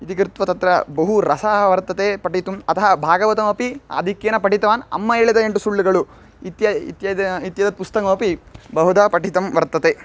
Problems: none marked